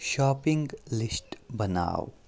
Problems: none marked